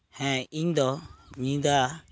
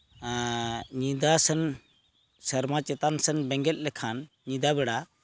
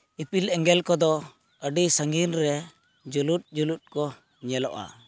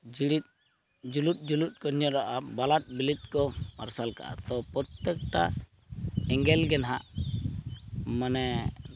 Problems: background sounds at intervals